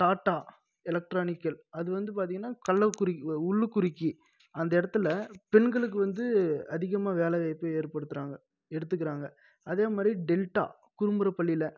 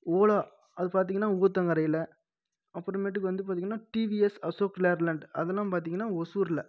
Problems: none marked